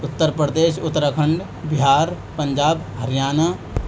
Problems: constant background noise